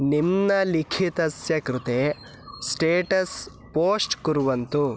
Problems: constant background noise